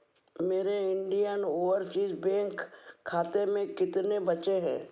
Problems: low volume